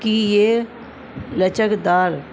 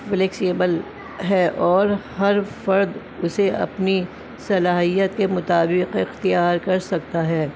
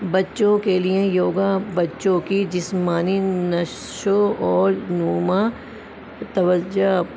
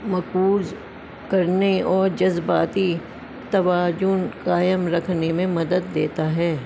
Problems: constant background noise